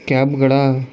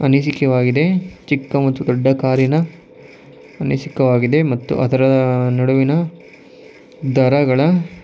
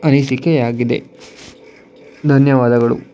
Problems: constant background noise